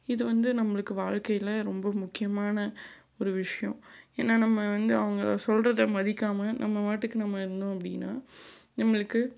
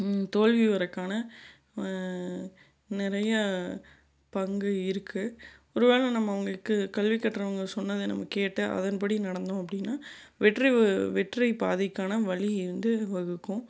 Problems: none marked